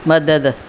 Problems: constant background noise